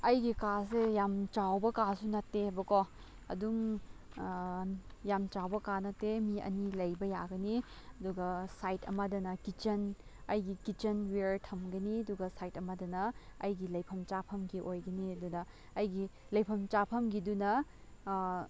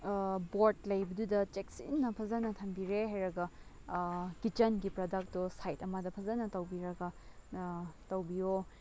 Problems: low volume